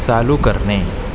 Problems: constant background noise